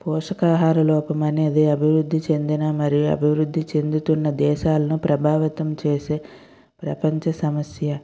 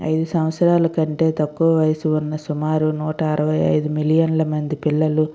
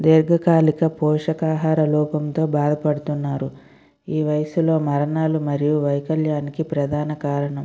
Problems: none marked